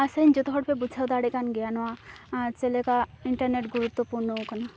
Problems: background sounds at intervals